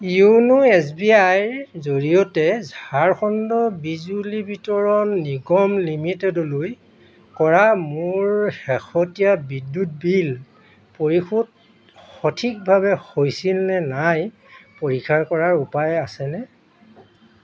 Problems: constant background noise, background conversations at intervals